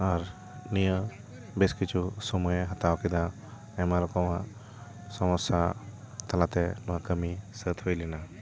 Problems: constant background noise, continuous background conversations